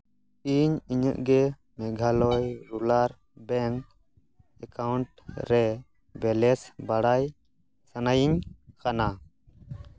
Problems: background sounds at intervals